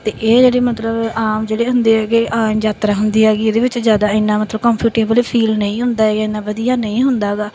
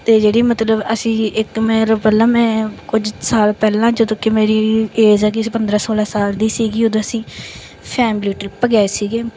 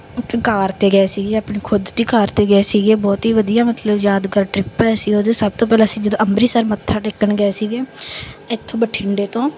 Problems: background sounds at intervals